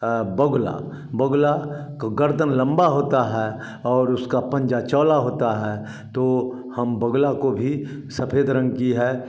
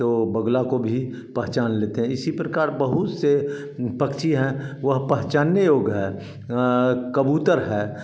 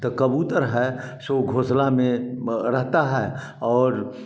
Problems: none marked